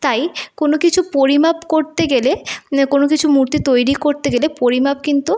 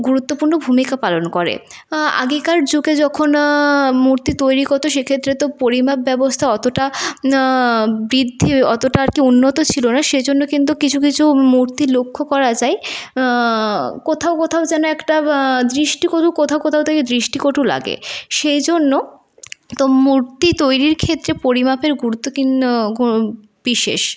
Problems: background sounds at intervals